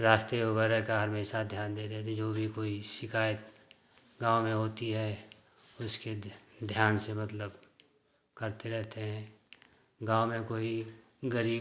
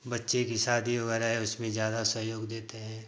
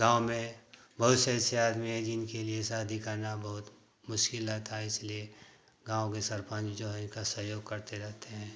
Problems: none marked